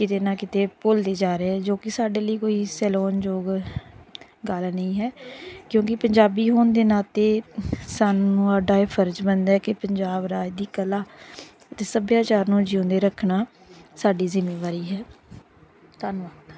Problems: background sounds at intervals, background conversations at intervals